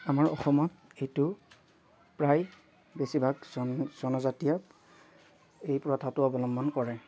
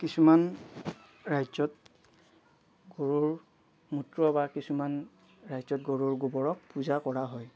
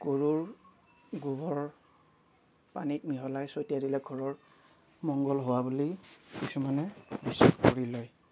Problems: none marked